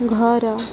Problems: constant background noise